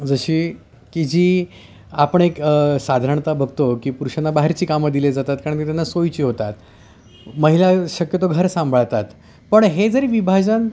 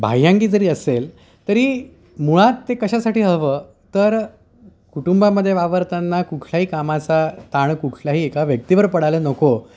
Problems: constant background noise, background conversations at intervals